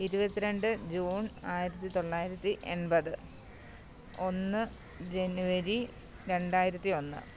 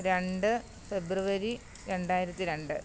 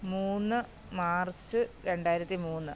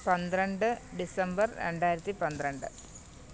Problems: none marked